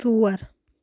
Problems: constant background noise